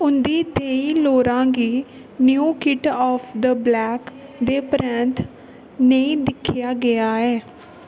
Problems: constant background noise